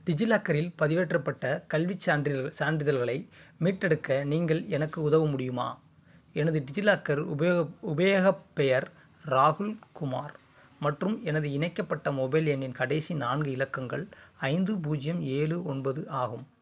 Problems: constant background noise